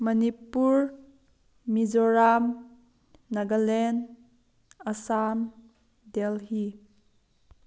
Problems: background sounds at intervals